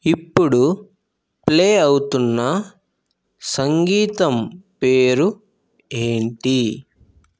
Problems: constant background noise